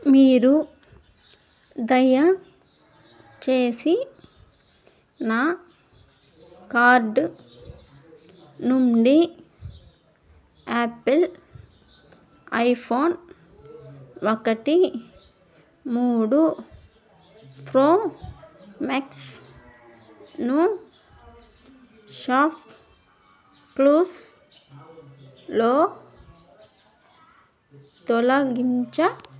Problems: background sounds at intervals, background conversations at intervals